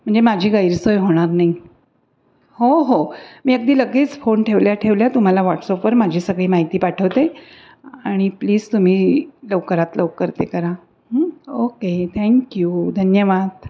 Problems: none marked